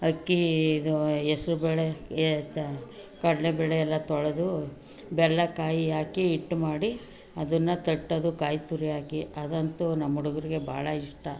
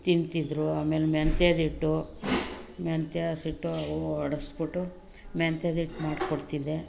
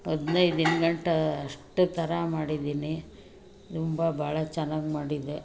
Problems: background sounds at intervals